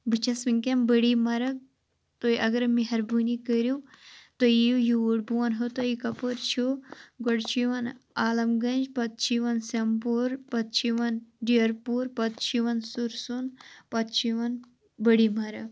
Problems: constant background noise